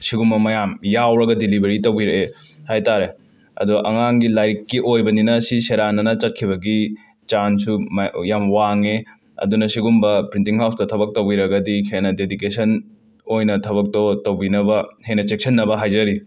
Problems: background sounds at intervals